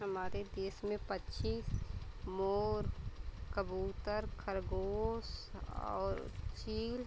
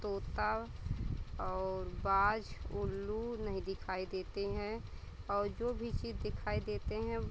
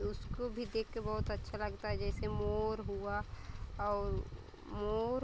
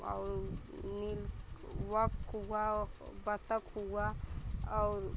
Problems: constant background noise, continuous background conversations